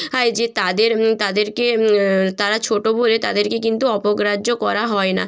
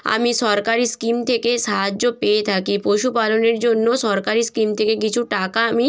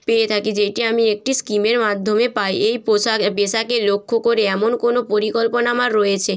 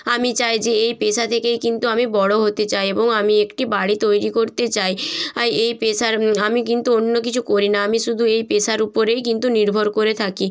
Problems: none marked